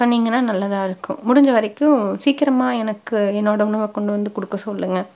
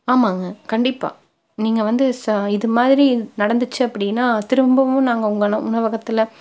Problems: none marked